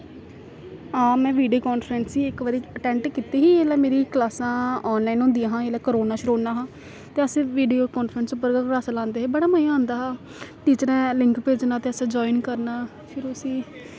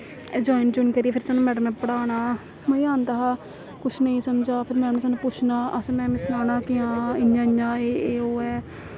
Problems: constant background noise